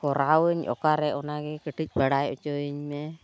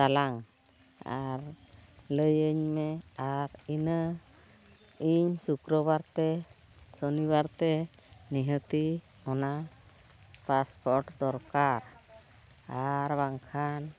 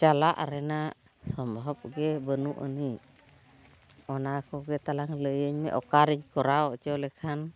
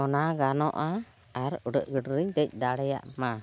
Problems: constant background noise, continuous background conversations